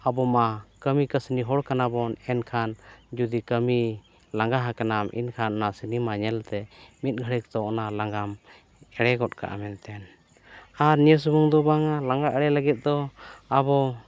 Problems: background sounds at intervals